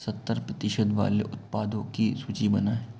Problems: constant background noise